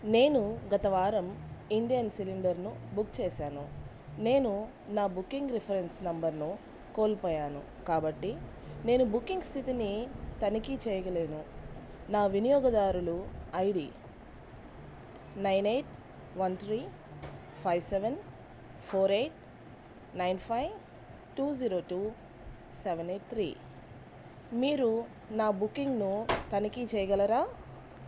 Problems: constant background noise